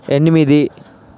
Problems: none marked